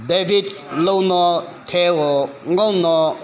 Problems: background sounds at intervals, background conversations at intervals